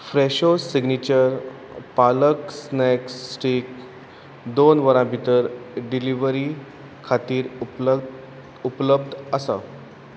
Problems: constant background noise